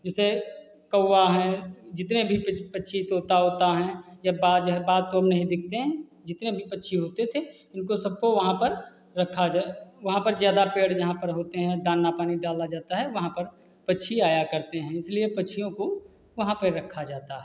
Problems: constant background noise, background conversations at intervals